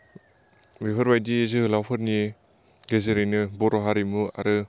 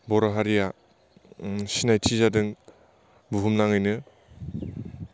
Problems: constant background noise